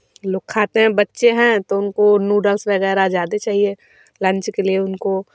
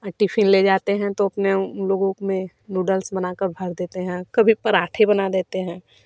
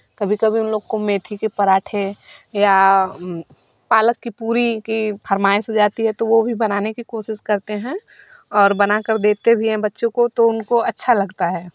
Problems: background sounds at intervals